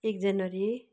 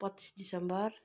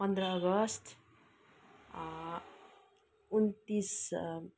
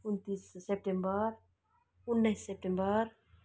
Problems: none marked